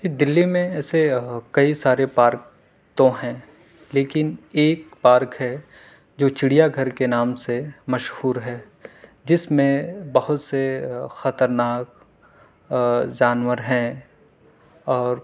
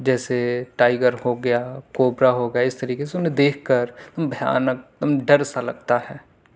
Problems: none marked